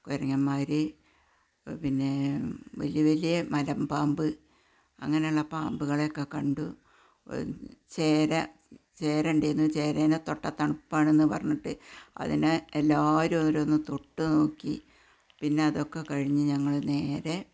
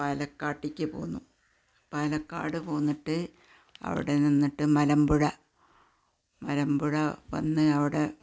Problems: none marked